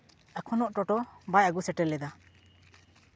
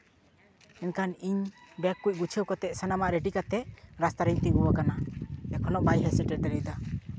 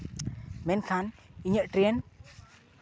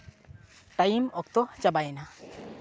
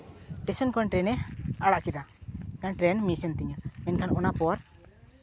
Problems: constant background noise